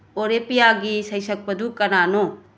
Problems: none marked